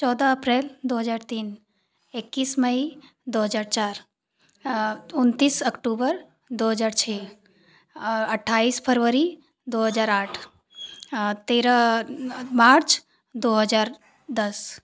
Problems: constant background noise